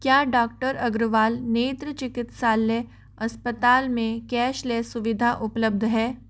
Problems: none marked